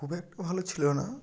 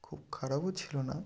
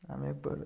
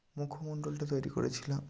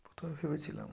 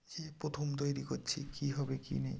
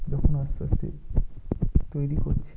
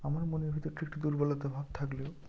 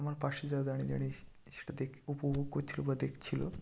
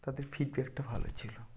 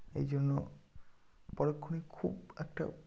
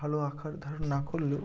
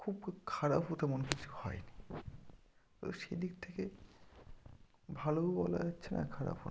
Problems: low volume